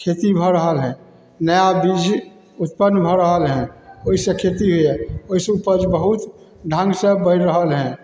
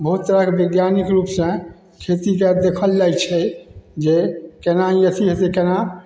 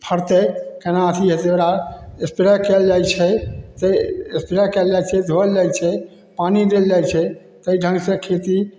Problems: none marked